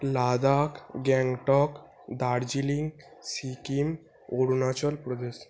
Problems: none marked